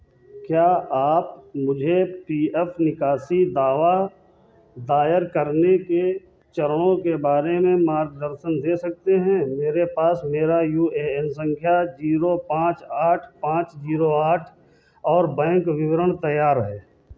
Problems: background sounds at intervals, background conversations at intervals